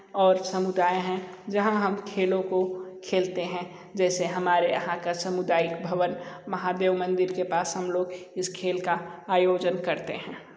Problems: constant background noise